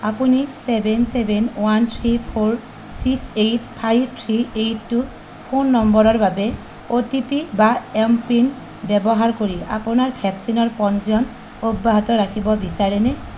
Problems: constant background noise